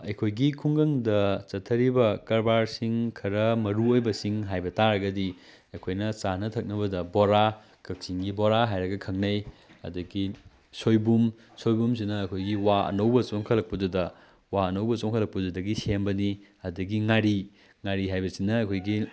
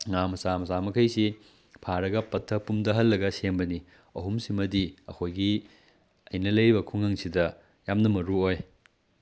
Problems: background sounds at intervals